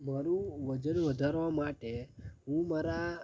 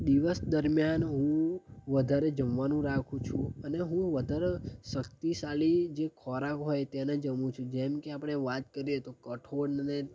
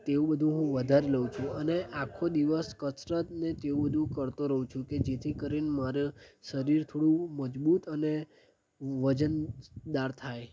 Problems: constant background noise